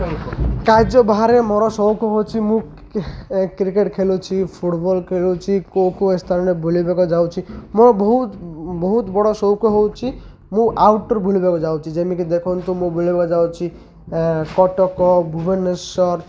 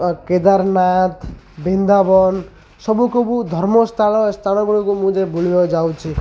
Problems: constant background noise, continuous background conversations